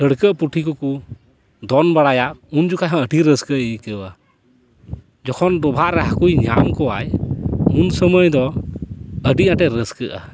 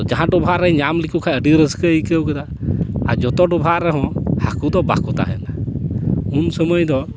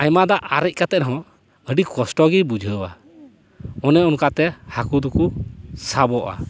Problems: constant background noise